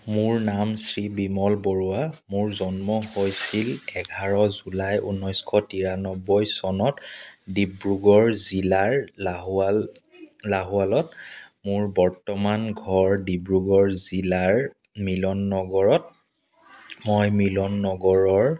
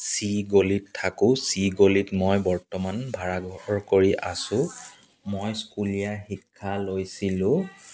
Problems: background sounds at intervals, background conversations at intervals